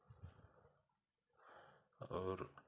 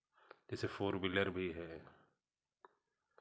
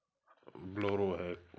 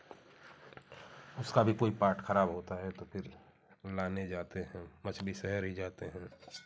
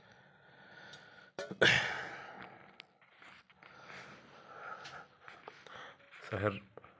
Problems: background sounds at intervals, continuous background conversations